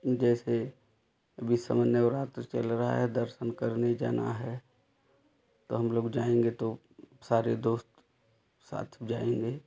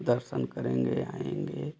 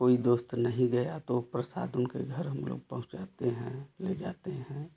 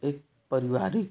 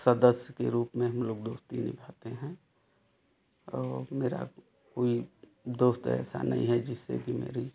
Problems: none marked